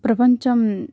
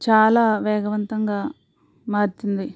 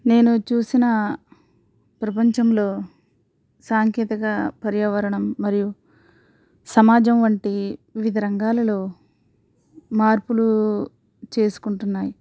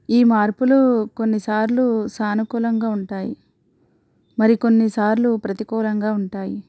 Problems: none marked